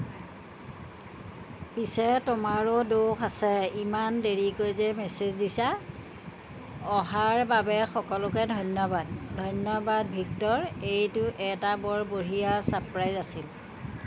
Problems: none marked